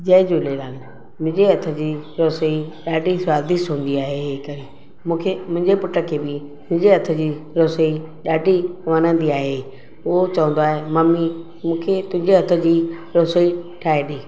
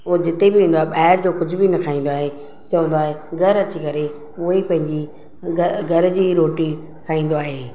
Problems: constant background noise